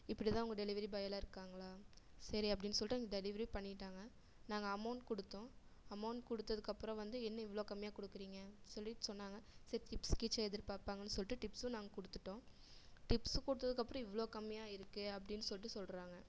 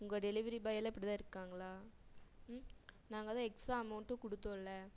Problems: low volume